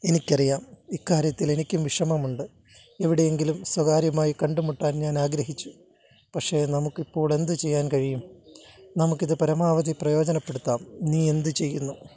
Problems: background sounds at intervals